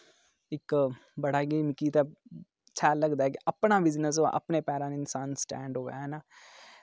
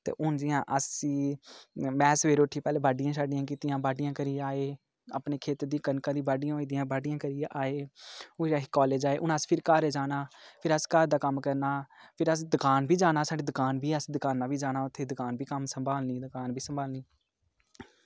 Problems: low volume